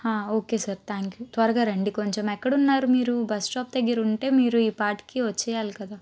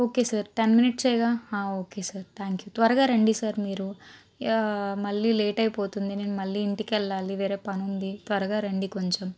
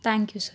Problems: constant background noise